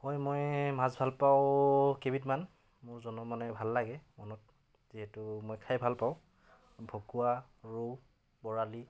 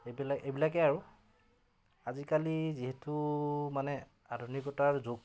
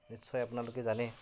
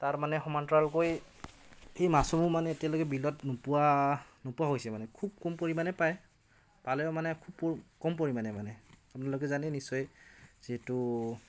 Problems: background conversations at intervals